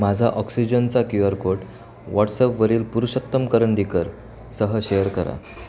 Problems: constant background noise, background conversations at intervals